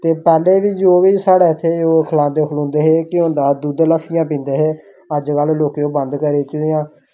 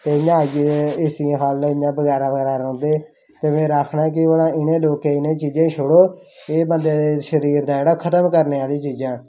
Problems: none marked